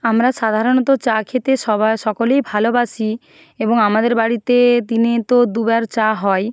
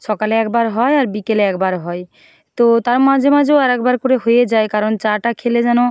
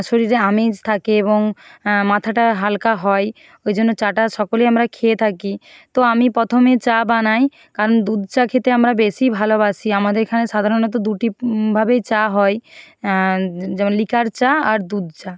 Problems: background sounds at intervals